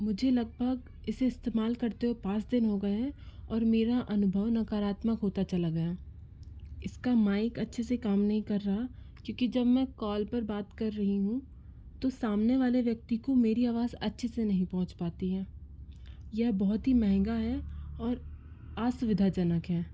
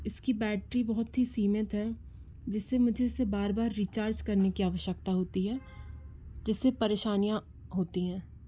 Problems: constant background noise